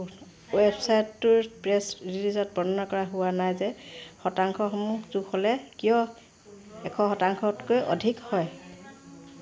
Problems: none marked